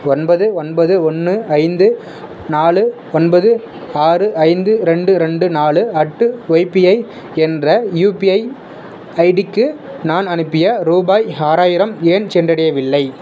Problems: constant background noise